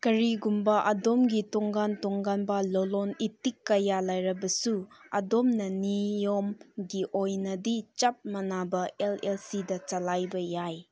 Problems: none marked